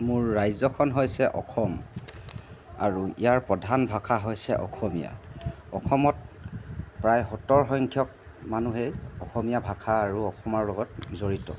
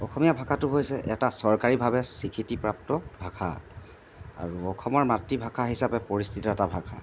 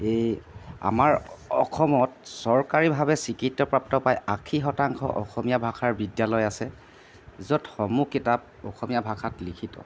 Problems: background sounds at intervals